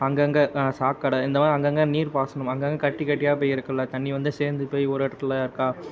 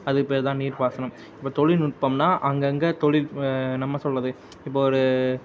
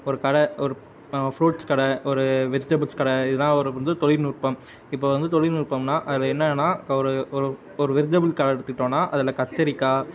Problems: background sounds at intervals